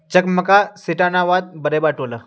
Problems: none marked